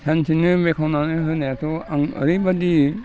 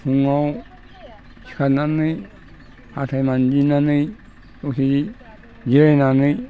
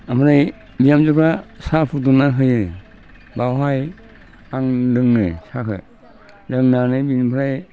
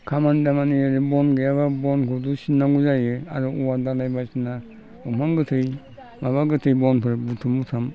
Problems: constant background noise